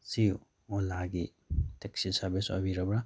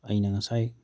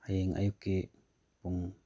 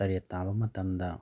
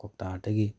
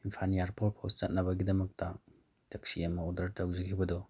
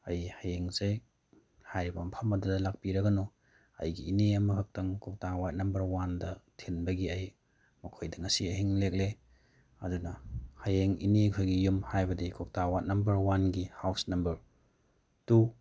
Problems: background sounds at intervals